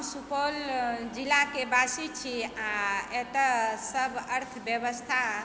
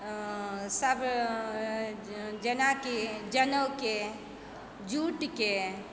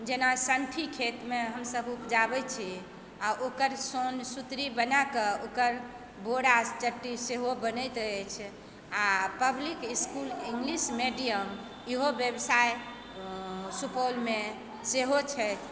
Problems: background sounds at intervals